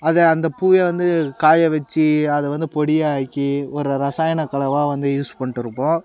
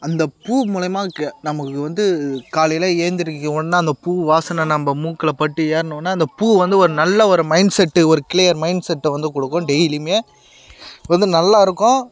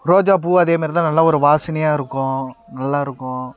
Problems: none marked